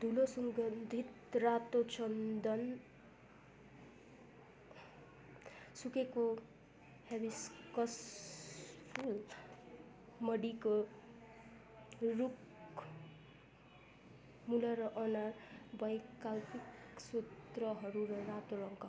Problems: continuous background conversations